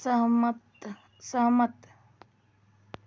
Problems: none marked